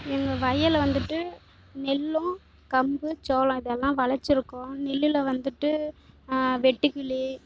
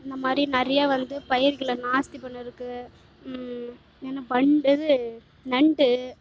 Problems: low volume